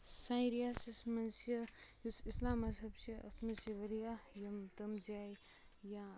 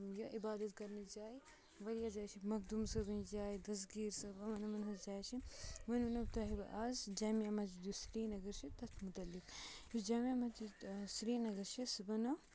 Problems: low volume